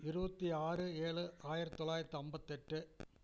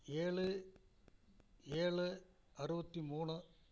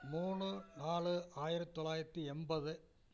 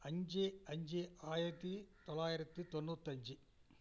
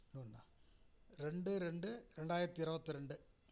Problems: constant background noise